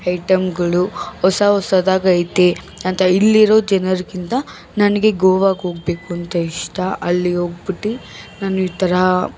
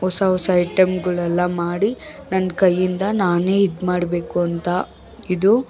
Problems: background sounds at intervals, background conversations at intervals